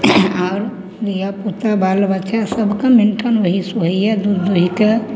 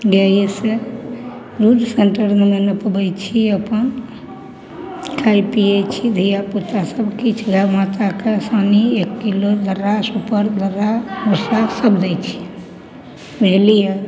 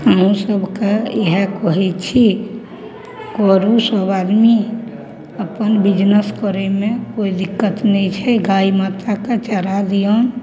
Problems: none marked